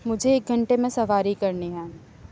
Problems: none marked